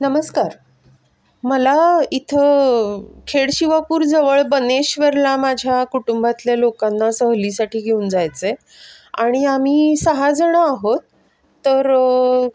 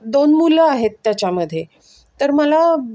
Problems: none marked